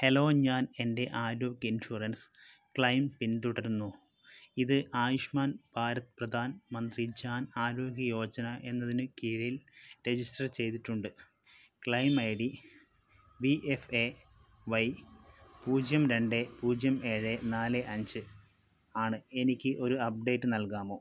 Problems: low volume